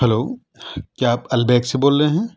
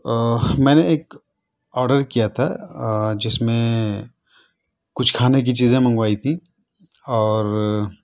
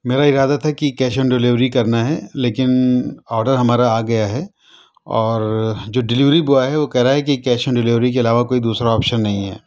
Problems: none marked